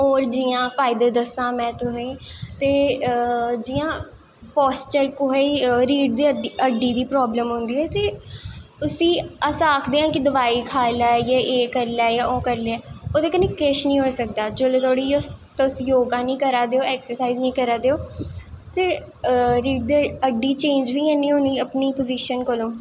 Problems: echo